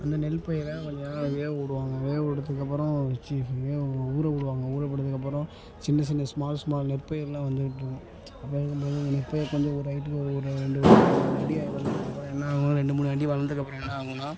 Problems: background conversations at intervals